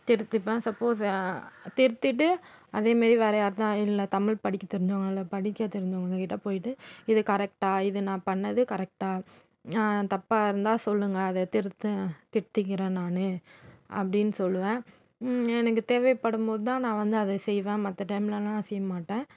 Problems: constant background noise